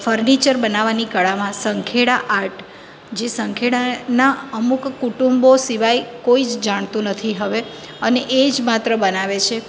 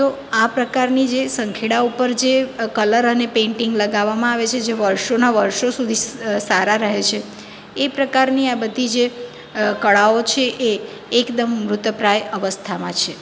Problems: constant background noise